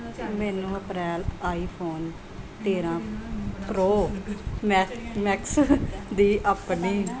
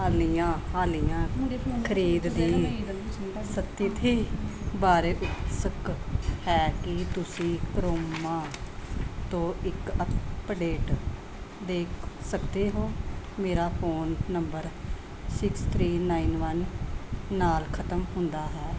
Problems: continuous background conversations